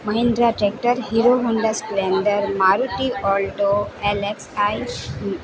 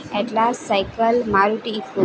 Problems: constant background noise